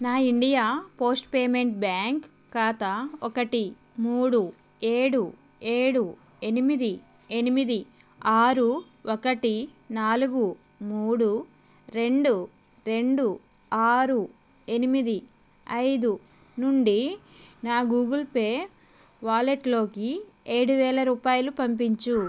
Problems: constant background noise